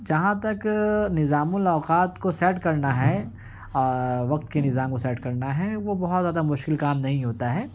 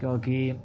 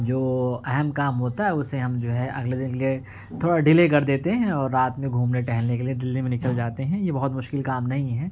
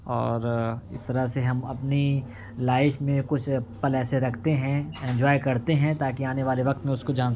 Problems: background sounds at intervals